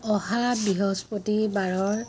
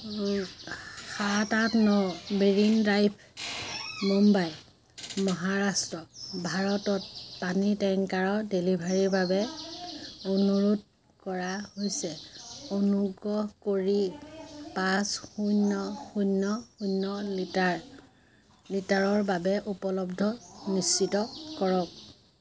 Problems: none marked